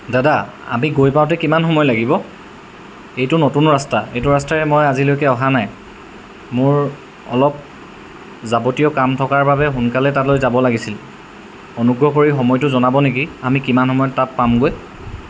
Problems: none marked